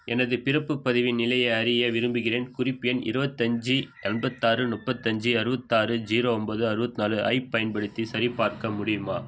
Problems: background sounds at intervals